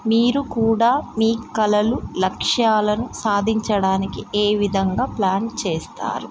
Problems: constant background noise